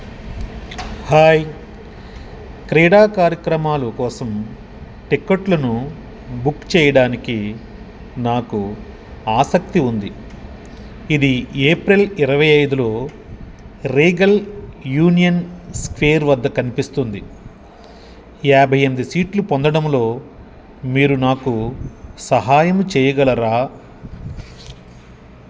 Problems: none marked